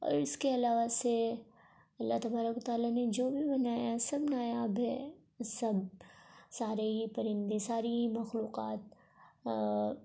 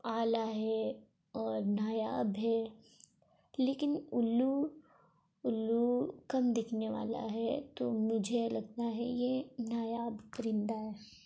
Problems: constant background noise, low volume